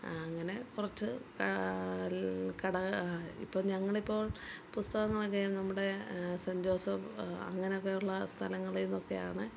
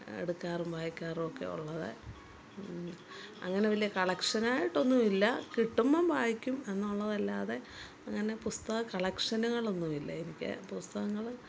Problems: background sounds at intervals, low volume